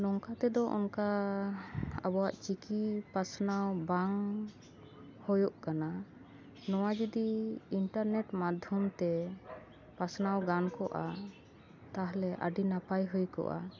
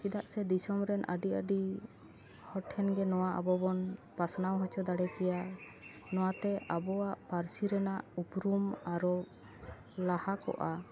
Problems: background sounds at intervals